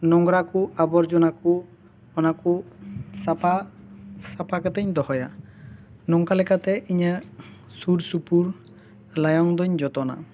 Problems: none marked